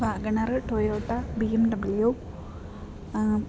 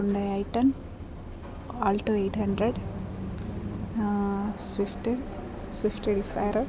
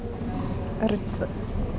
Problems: constant background noise